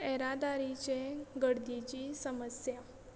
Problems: constant background noise